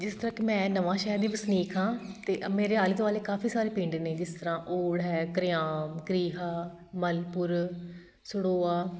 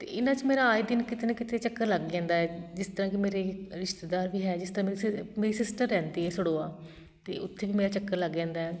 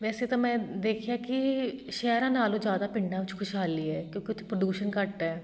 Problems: background sounds at intervals